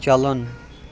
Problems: constant background noise